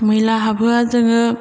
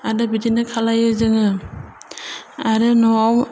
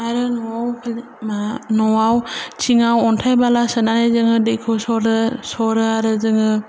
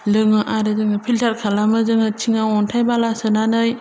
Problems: none marked